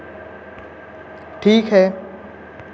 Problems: none marked